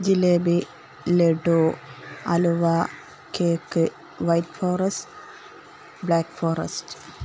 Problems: none marked